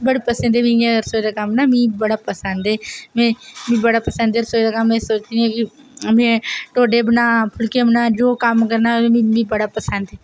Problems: none marked